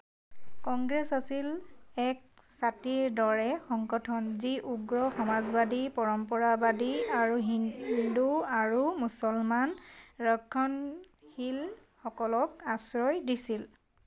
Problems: none marked